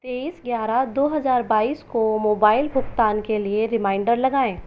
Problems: constant background noise